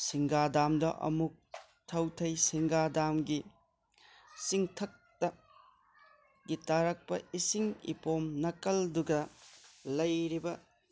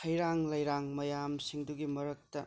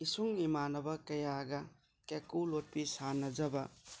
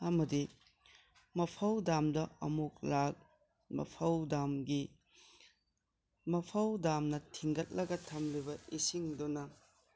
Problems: background conversations at intervals